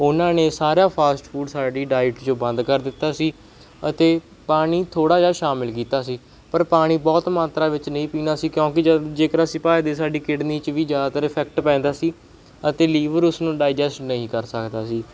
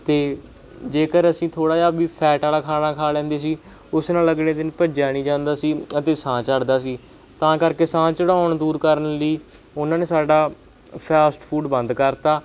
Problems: background sounds at intervals